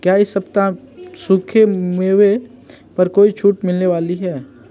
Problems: constant background noise, background conversations at intervals